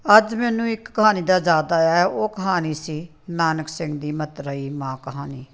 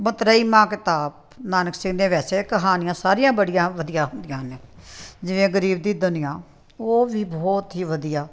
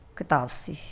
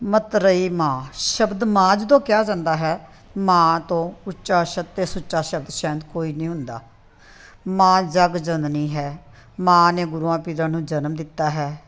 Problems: background sounds at intervals